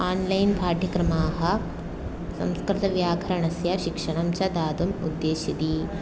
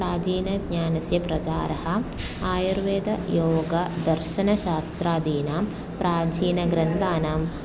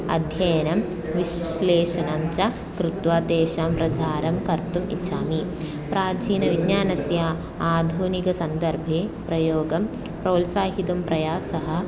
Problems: constant background noise, continuous background conversations